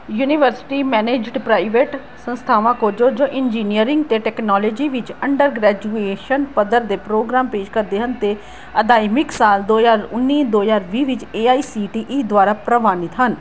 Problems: background sounds at intervals